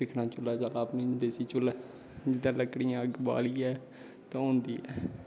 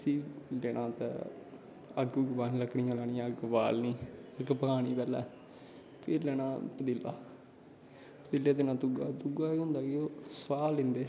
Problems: constant background noise, background conversations at intervals